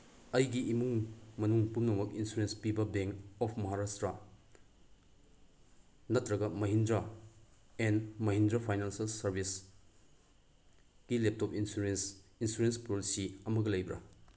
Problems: background sounds at intervals